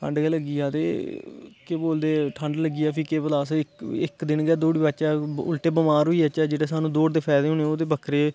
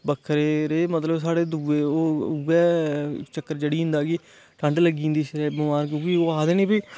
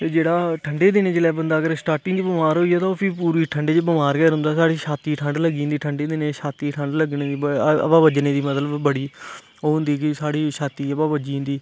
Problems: constant background noise